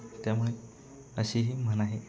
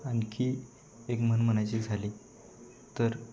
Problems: none marked